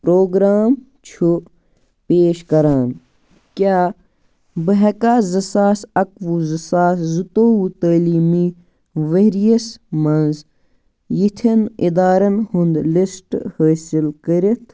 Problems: none marked